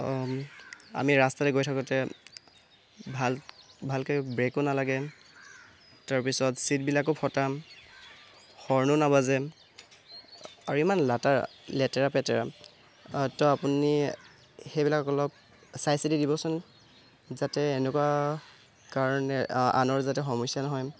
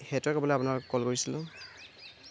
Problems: constant background noise